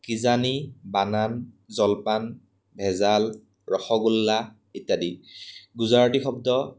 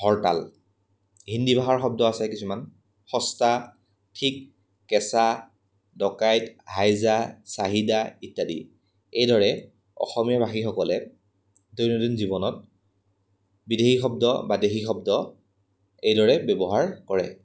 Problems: background sounds at intervals